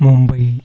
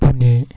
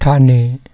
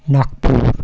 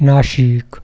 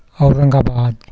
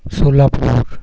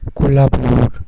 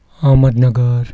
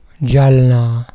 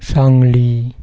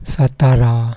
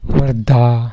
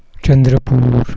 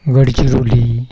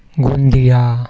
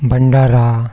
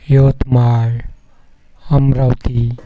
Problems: none marked